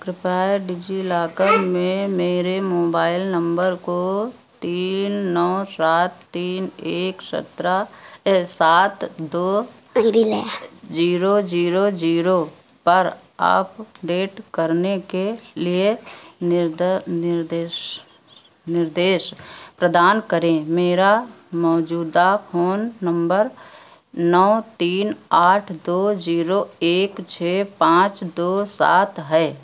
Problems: background conversations at intervals